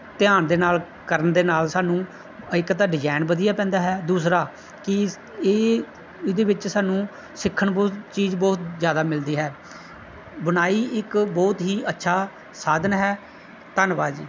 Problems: background sounds at intervals